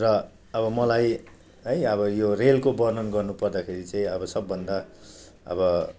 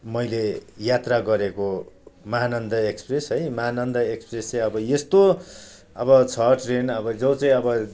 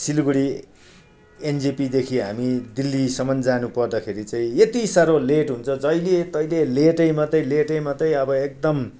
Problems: none marked